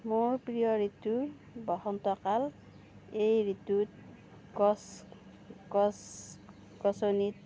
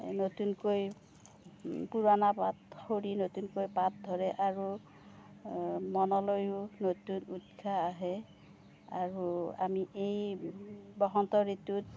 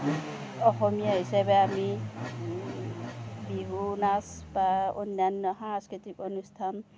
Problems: none marked